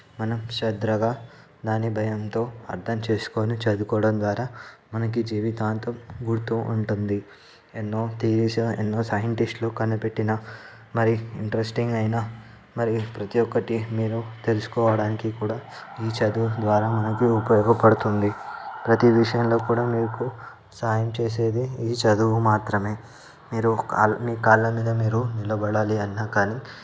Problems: background sounds at intervals, background conversations at intervals